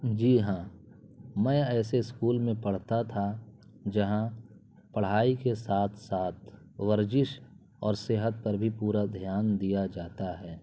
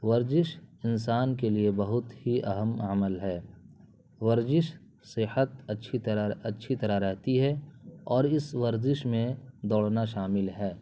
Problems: constant background noise